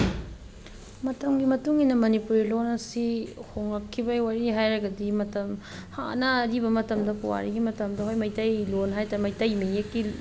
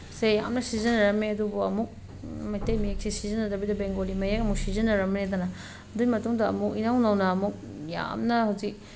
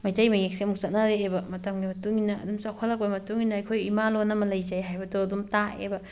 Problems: none marked